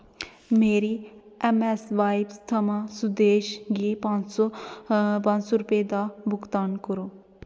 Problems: constant background noise